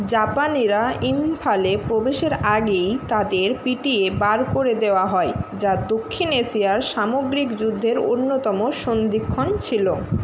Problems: constant background noise